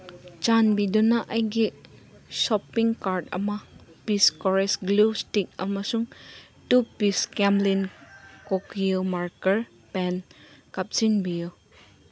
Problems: constant background noise